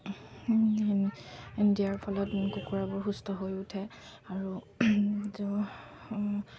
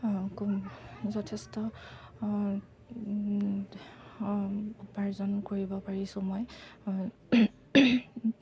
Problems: none marked